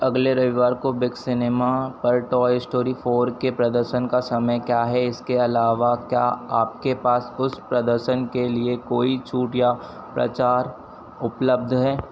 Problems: none marked